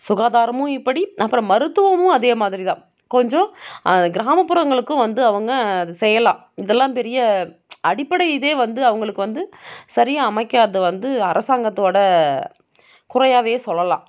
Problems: none marked